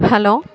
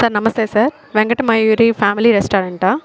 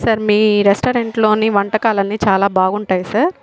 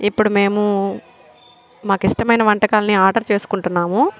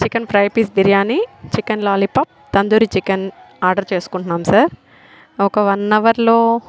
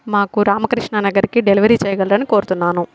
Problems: constant background noise